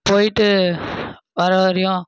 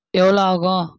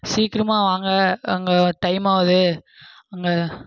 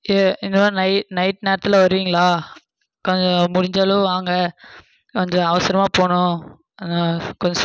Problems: none marked